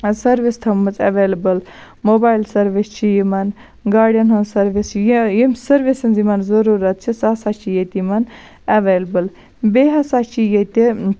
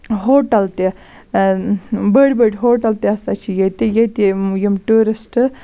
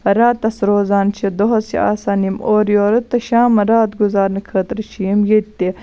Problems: constant background noise